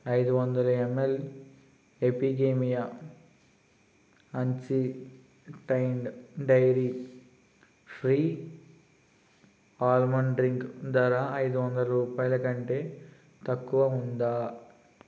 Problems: constant background noise